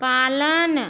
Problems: none marked